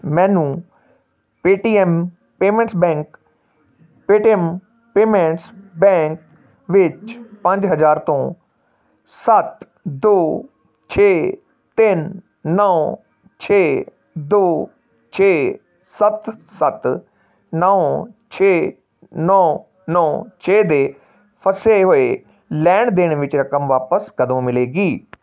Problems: background sounds at intervals